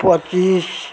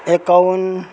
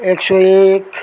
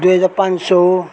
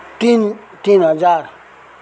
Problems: background sounds at intervals